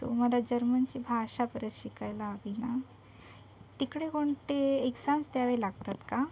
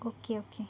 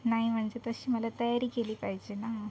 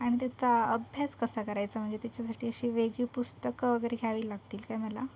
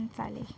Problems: none marked